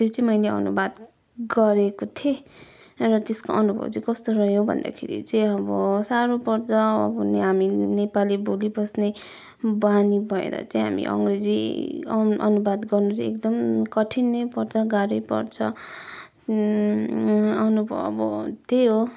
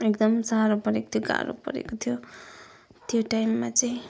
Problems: background sounds at intervals